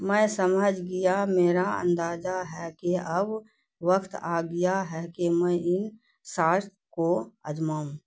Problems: none marked